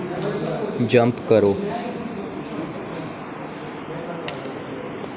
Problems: constant background noise